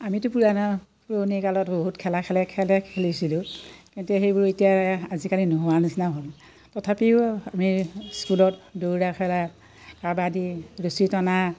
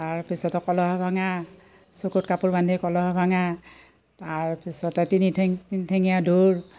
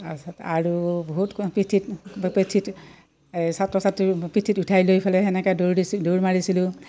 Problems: none marked